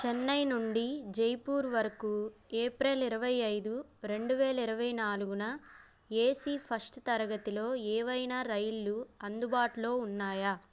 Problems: background sounds at intervals